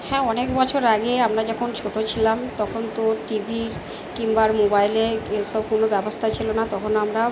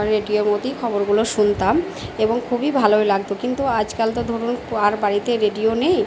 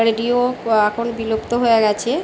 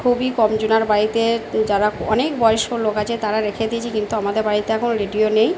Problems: none marked